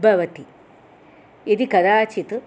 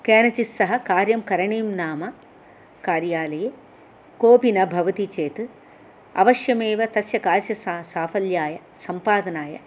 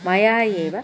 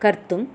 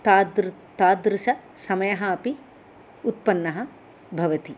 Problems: none marked